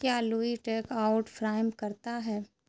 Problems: constant background noise